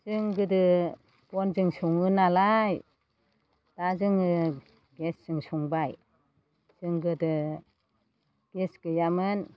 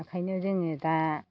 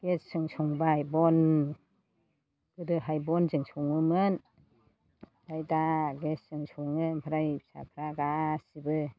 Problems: low volume